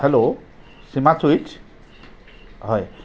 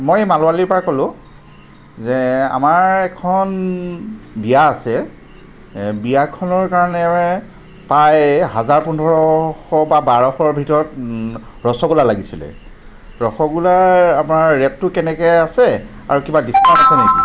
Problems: none marked